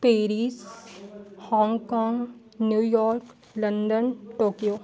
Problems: constant background noise, continuous background conversations